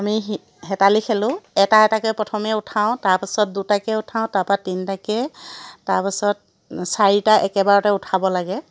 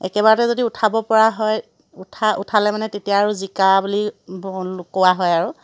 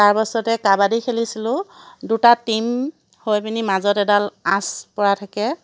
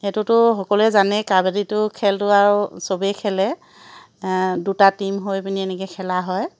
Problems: none marked